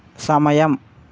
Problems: none marked